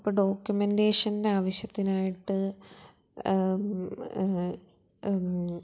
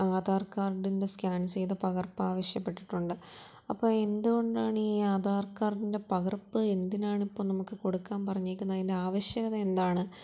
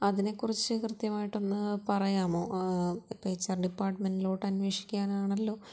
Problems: low volume